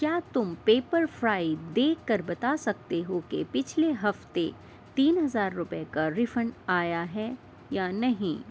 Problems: constant background noise